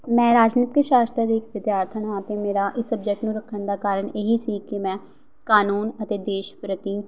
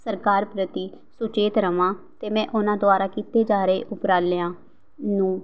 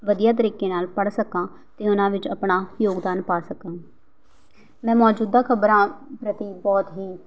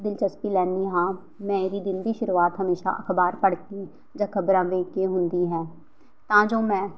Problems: background sounds at intervals